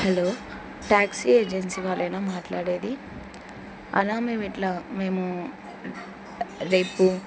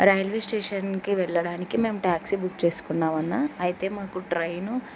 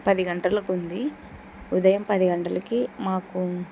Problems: none marked